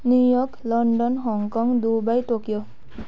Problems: background sounds at intervals